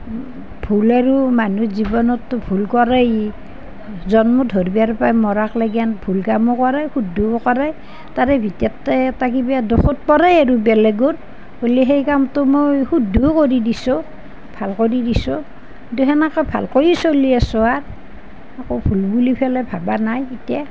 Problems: none marked